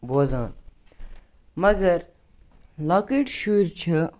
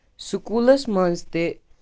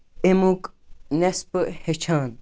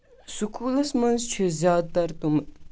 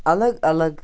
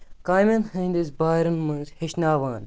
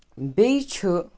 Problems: none marked